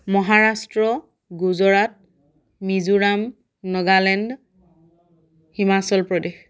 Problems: none marked